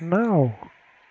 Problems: constant background noise